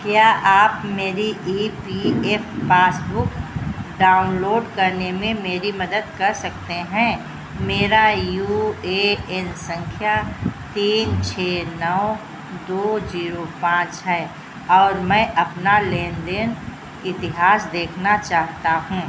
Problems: constant background noise